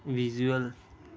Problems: background conversations at intervals